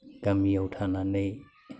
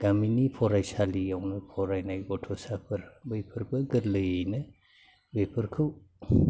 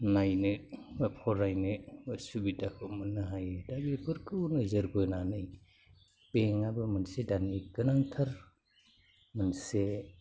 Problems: low volume